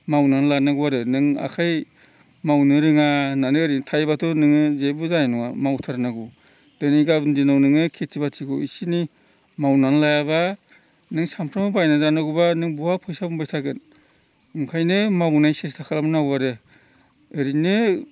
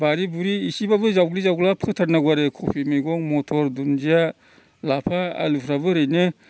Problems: constant background noise